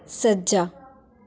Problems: continuous background conversations